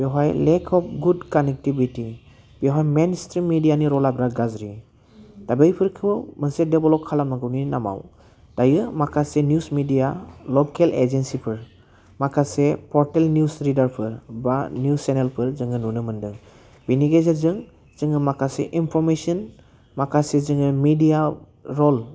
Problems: low volume